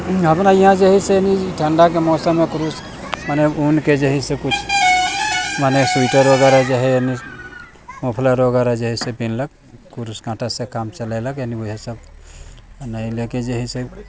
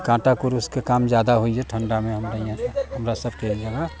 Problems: constant background noise